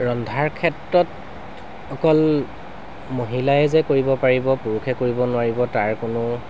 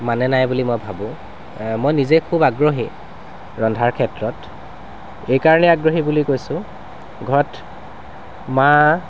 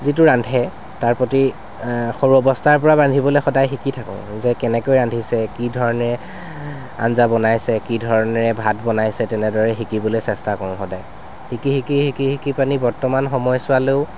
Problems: constant background noise